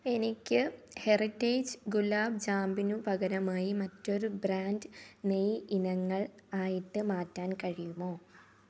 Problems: none marked